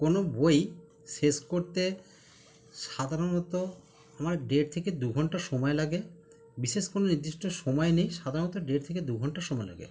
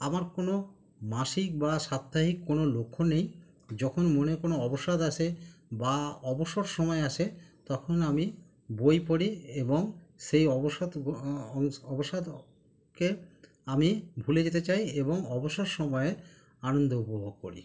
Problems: none marked